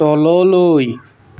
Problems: constant background noise